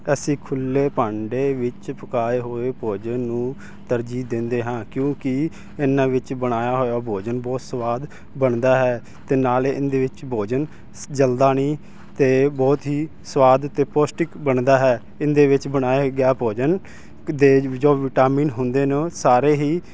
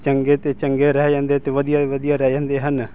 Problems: constant background noise